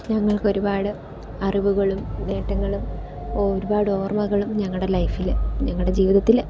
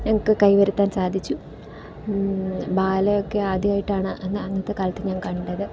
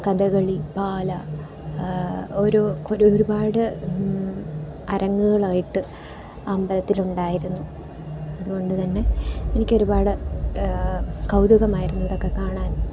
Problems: background sounds at intervals, low volume